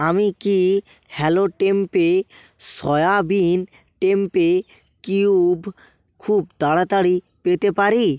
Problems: none marked